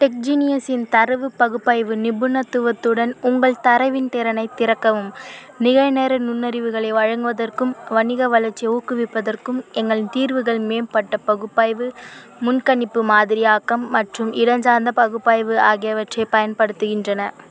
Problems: constant background noise